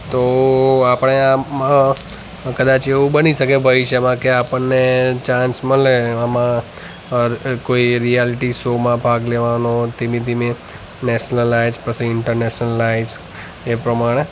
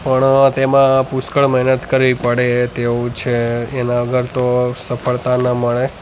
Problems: constant background noise, echo